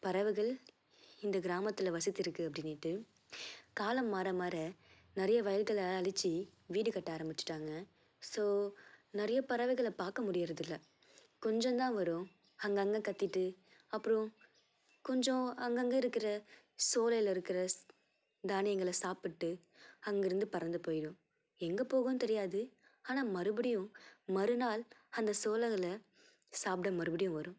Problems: none marked